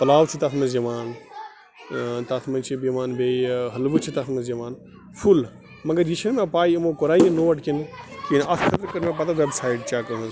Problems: constant background noise, continuous background conversations